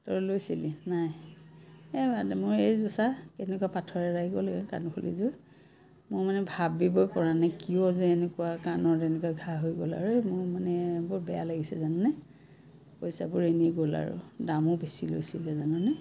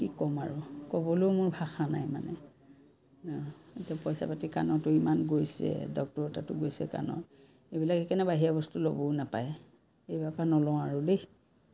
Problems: constant background noise